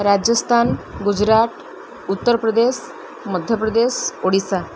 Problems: none marked